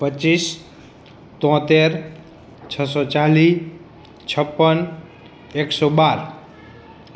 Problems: constant background noise, background conversations at intervals